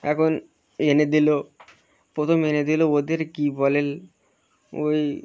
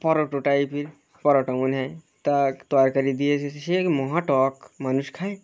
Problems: constant background noise, continuous background conversations